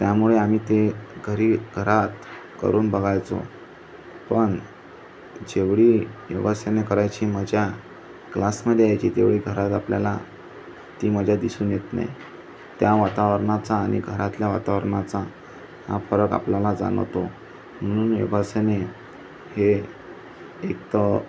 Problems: constant background noise, background conversations at intervals